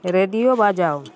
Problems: continuous background conversations